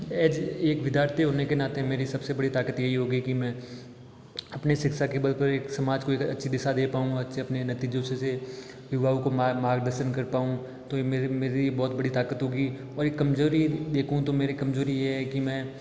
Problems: none marked